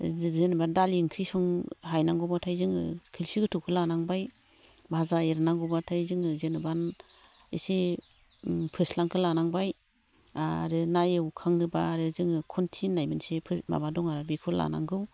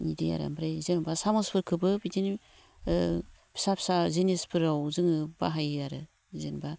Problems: none marked